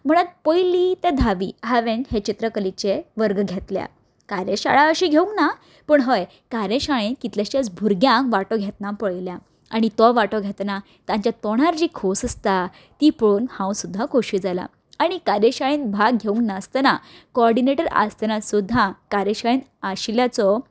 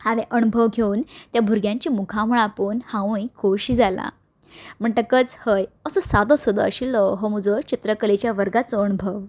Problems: background sounds at intervals